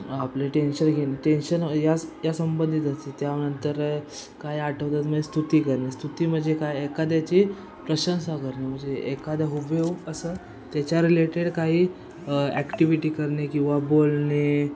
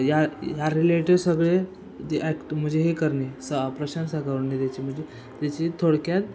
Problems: constant background noise, continuous background conversations